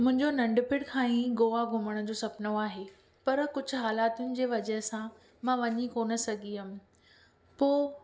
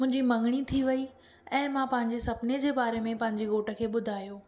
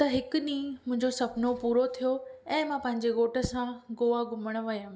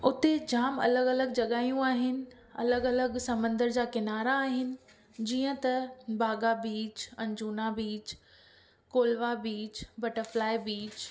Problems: background sounds at intervals